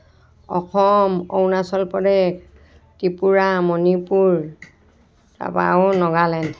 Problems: background sounds at intervals